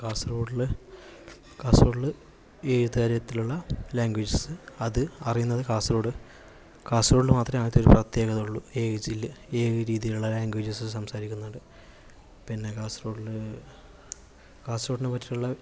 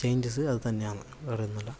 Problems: background sounds at intervals